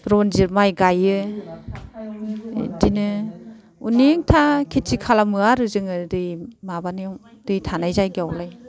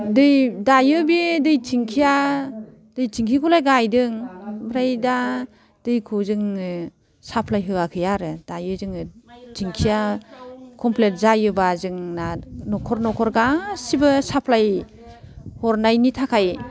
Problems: none marked